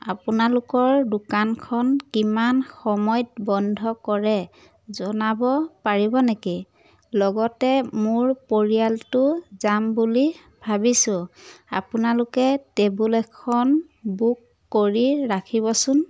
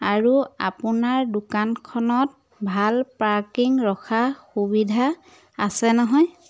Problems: none marked